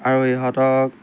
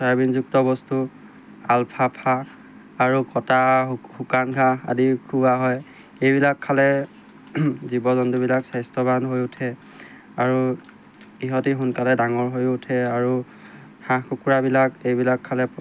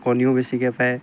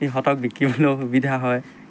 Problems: constant background noise